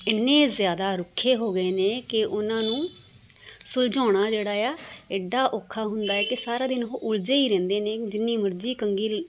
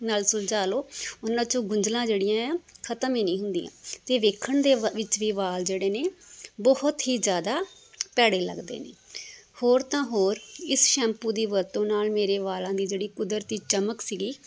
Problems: none marked